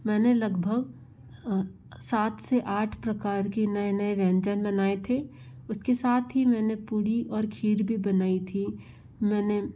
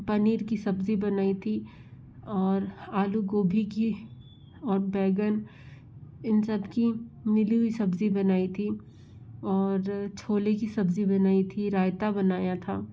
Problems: constant background noise